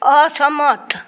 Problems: none marked